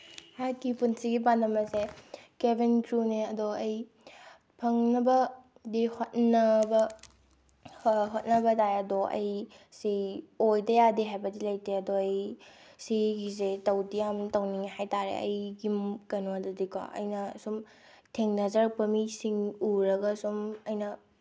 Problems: none marked